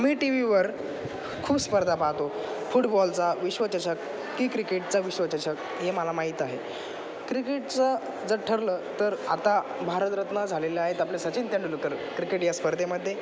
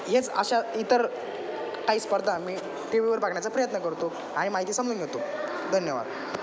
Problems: constant background noise